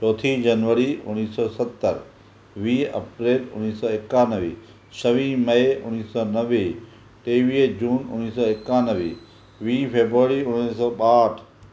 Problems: none marked